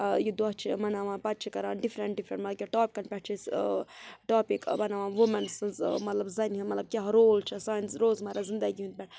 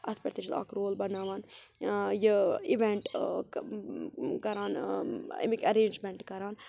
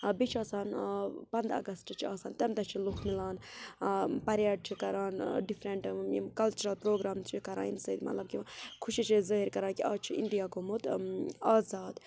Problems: constant background noise, background conversations at intervals